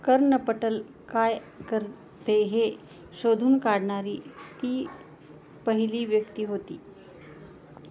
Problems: background sounds at intervals, background conversations at intervals